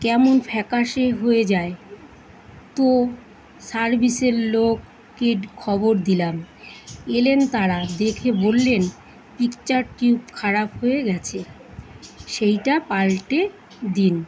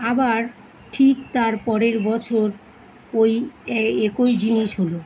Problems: constant background noise